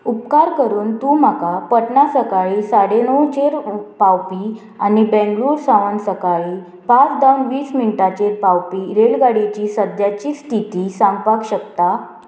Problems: constant background noise